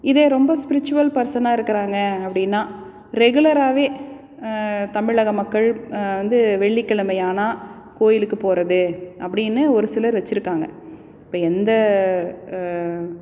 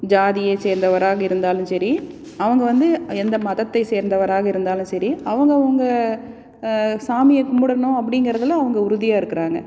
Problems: none marked